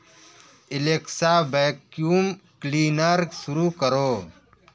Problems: none marked